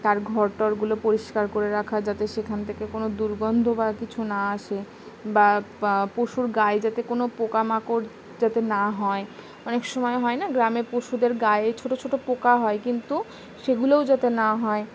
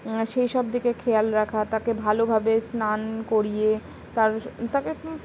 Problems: constant background noise